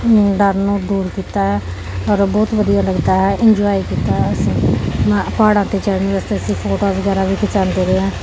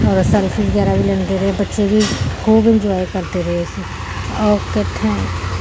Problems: none marked